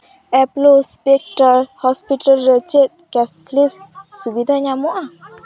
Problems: background conversations at intervals